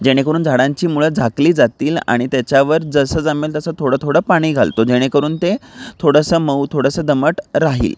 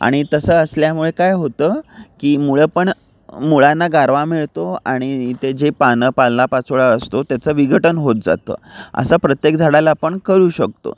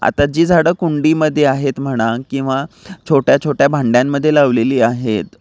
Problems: none marked